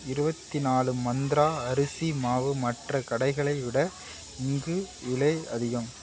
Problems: none marked